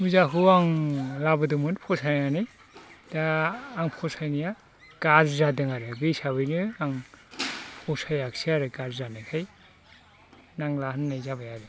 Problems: constant background noise